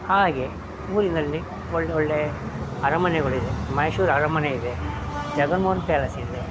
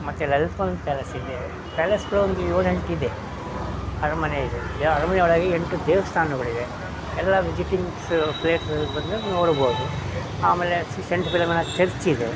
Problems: background sounds at intervals